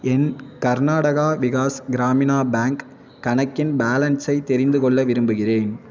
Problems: constant background noise